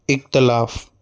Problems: constant background noise